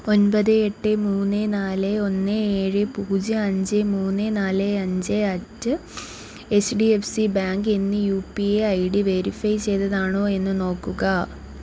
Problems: low volume